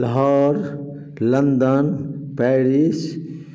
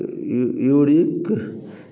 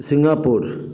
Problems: constant background noise